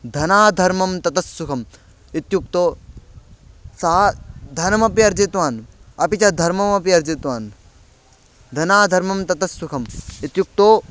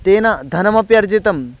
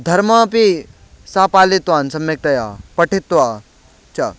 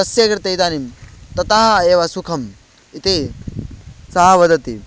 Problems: background sounds at intervals